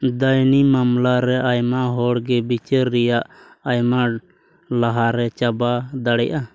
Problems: none marked